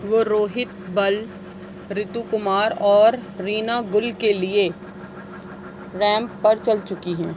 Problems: none marked